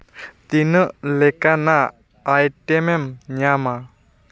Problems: background sounds at intervals